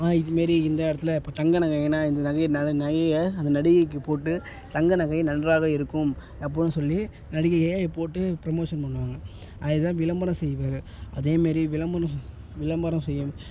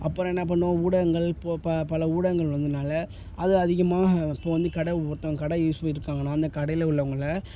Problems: none marked